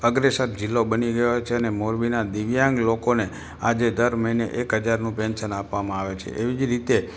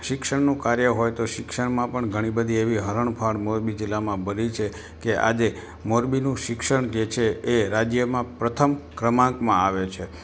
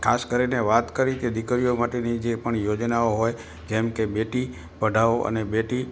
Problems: constant background noise